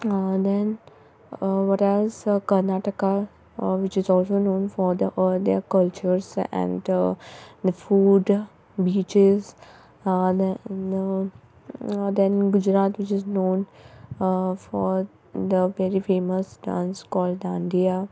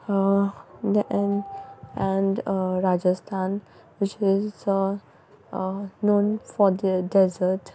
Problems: background sounds at intervals